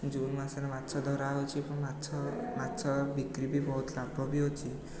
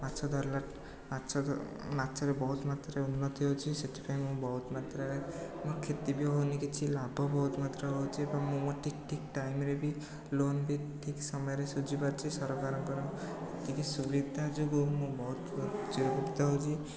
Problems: background sounds at intervals, background conversations at intervals